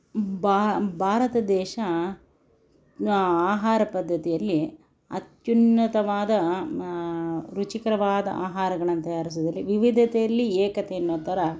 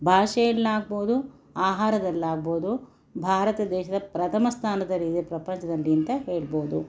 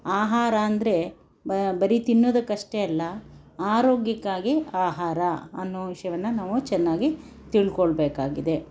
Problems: none marked